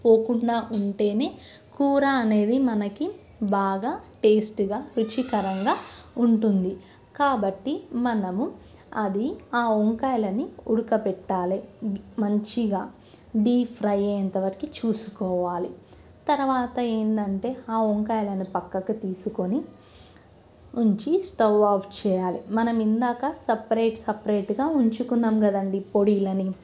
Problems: background sounds at intervals